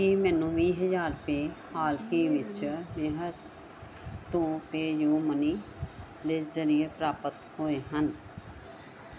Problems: background conversations at intervals